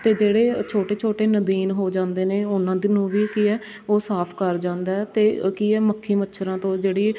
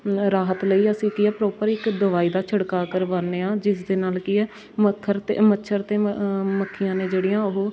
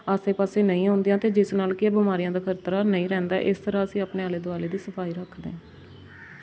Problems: constant background noise, background conversations at intervals